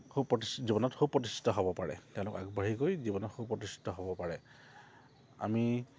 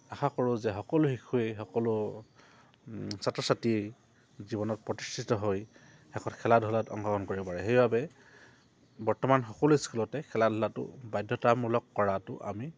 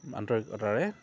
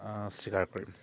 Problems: low volume